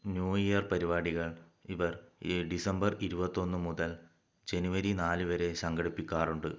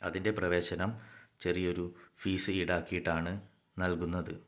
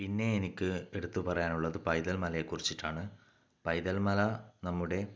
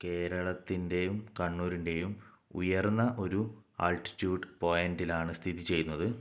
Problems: low volume